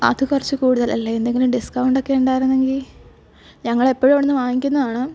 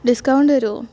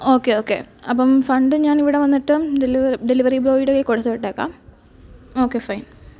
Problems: background sounds at intervals